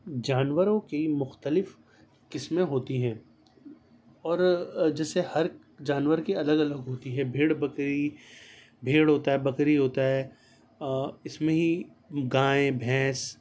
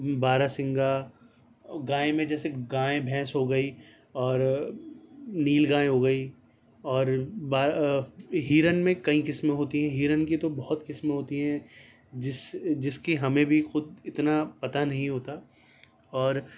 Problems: none marked